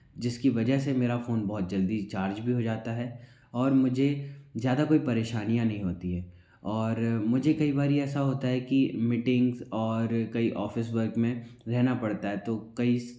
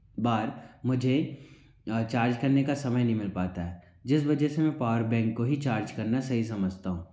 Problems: background sounds at intervals